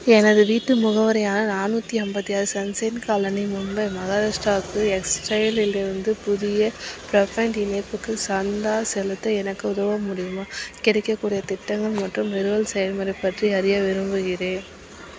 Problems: constant background noise, continuous background conversations